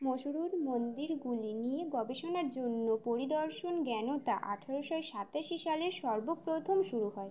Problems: none marked